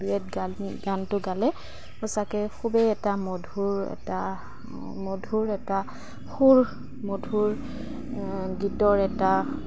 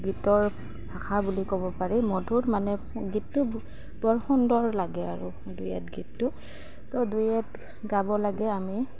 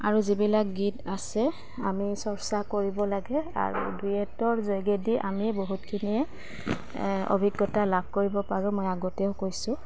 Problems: constant background noise